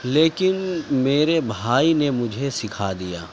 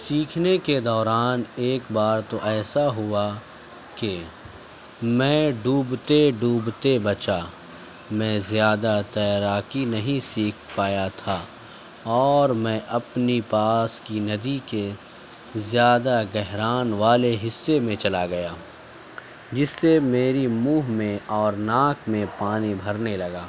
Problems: constant background noise, background conversations at intervals